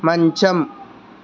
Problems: constant background noise